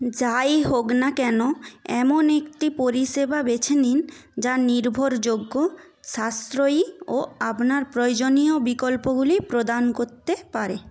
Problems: none marked